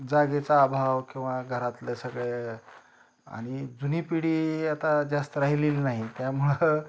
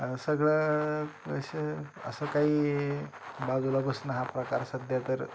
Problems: none marked